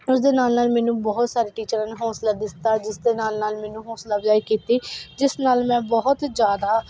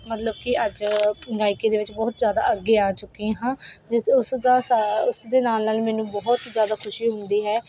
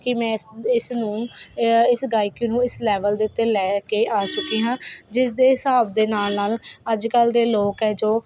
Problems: constant background noise